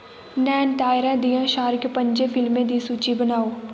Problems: constant background noise